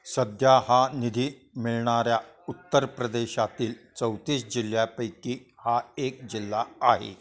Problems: constant background noise, continuous background conversations